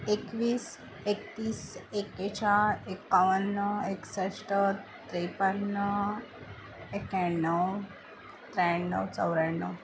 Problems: none marked